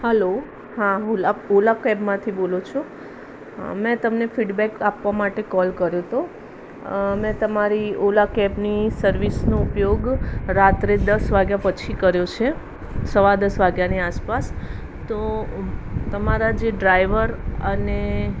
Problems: constant background noise